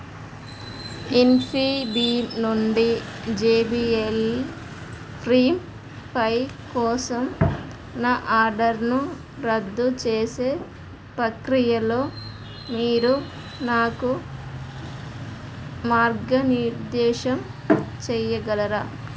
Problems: none marked